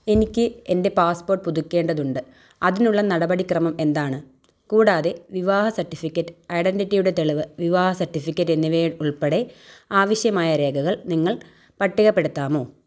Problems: none marked